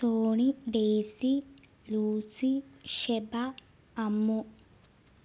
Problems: low volume